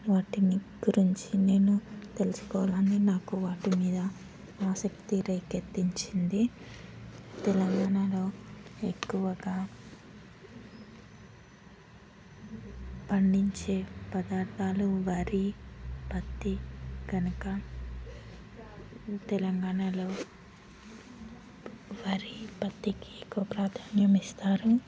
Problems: constant background noise